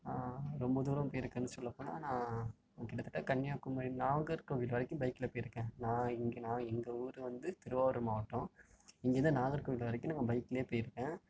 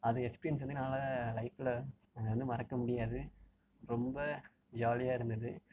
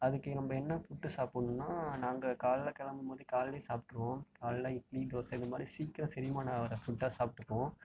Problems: low volume